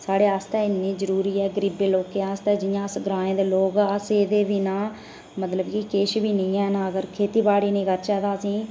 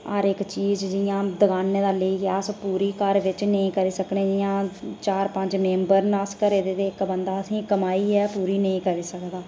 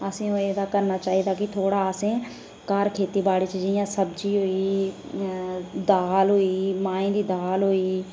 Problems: none marked